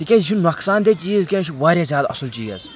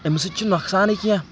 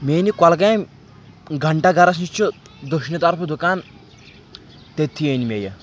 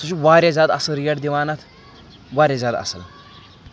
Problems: none marked